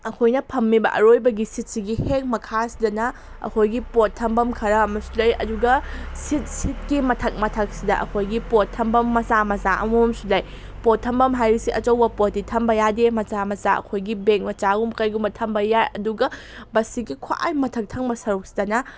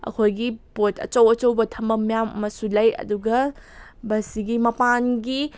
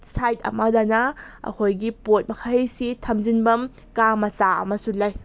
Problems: none marked